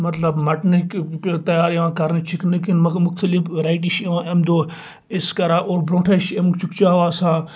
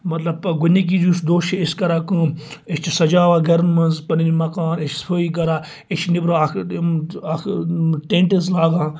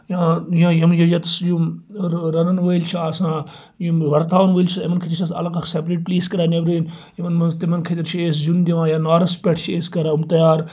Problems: none marked